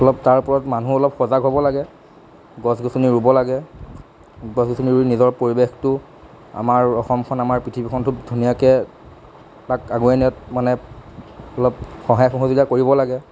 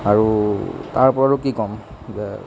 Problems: constant background noise